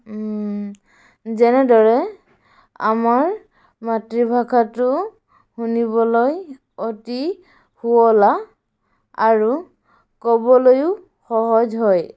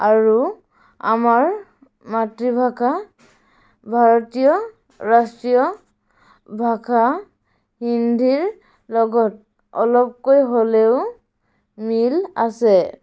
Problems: background sounds at intervals